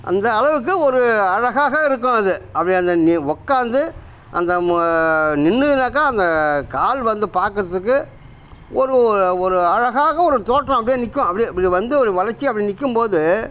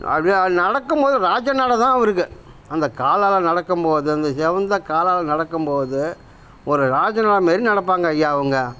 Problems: none marked